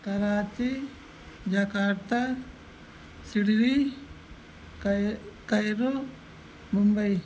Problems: none marked